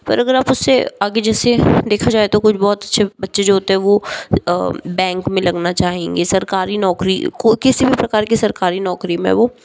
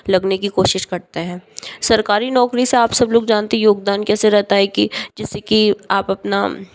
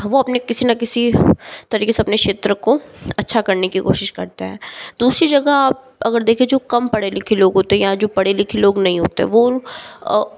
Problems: background sounds at intervals